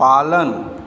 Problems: background sounds at intervals